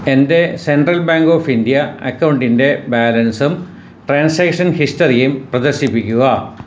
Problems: constant background noise